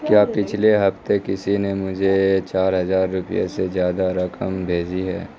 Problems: background sounds at intervals, background conversations at intervals